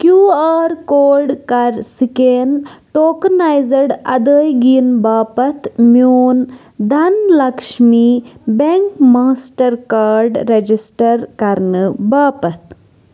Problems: constant background noise